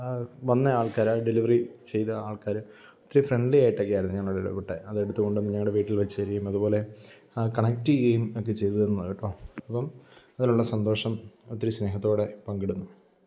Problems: background sounds at intervals